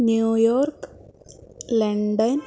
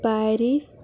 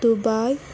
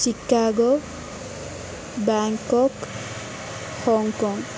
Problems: background sounds at intervals